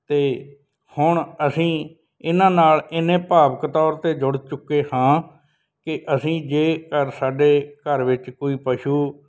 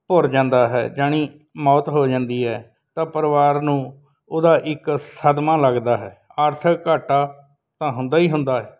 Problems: background sounds at intervals